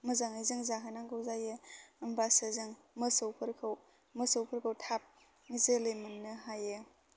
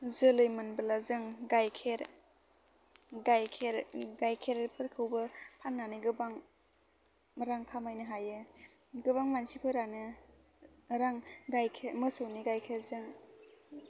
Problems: low volume